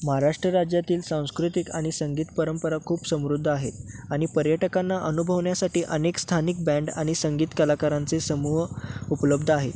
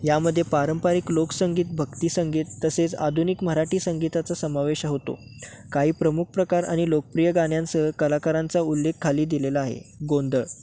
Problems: none marked